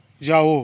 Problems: none marked